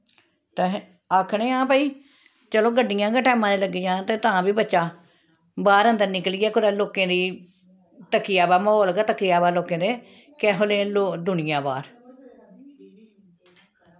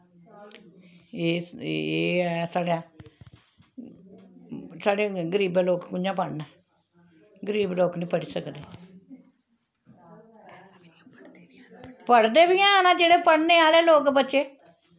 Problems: background sounds at intervals